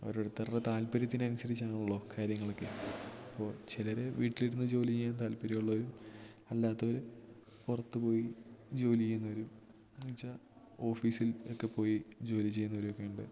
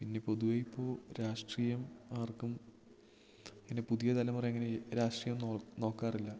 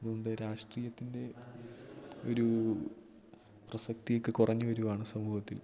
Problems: none marked